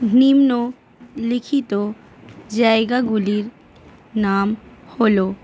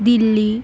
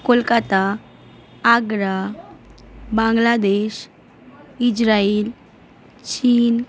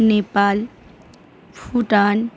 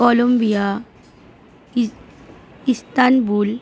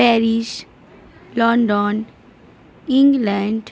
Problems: constant background noise